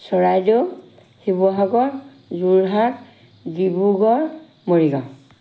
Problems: none marked